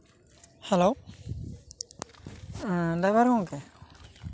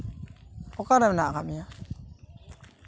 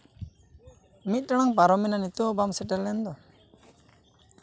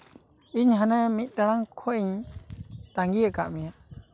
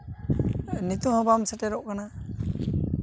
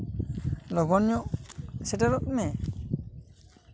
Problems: constant background noise, continuous background conversations